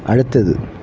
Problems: constant background noise